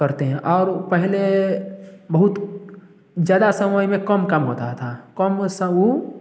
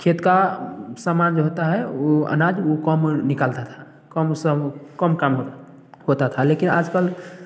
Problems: constant background noise